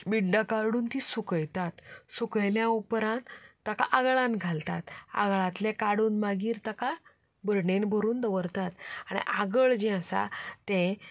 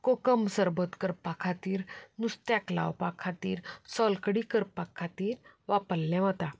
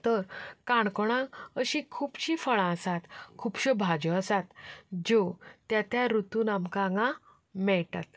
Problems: background sounds at intervals, background conversations at intervals